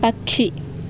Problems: constant background noise